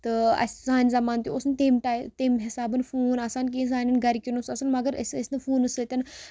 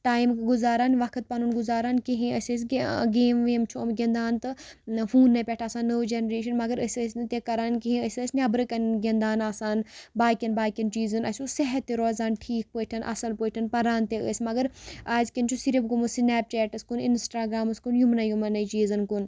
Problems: background sounds at intervals